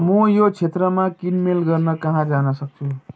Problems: continuous background conversations